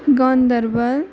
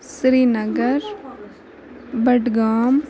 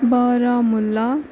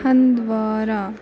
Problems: background sounds at intervals, background conversations at intervals